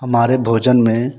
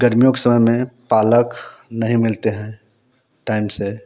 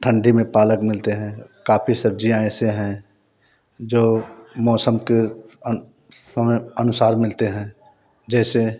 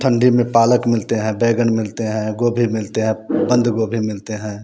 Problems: background sounds at intervals